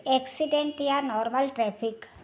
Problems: background sounds at intervals